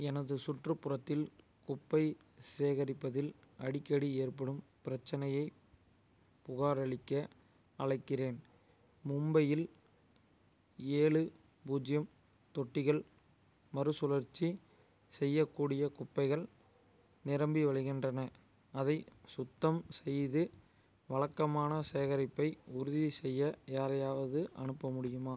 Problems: none marked